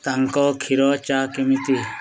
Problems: background sounds at intervals, background conversations at intervals